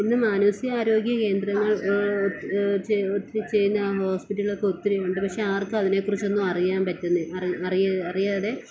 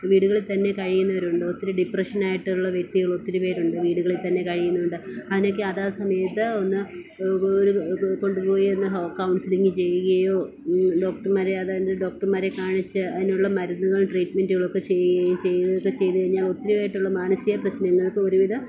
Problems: none marked